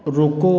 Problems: constant background noise